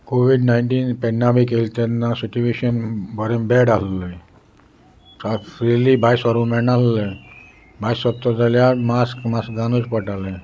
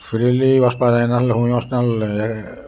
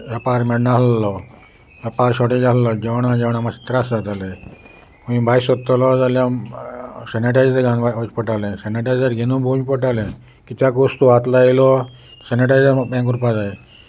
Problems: constant background noise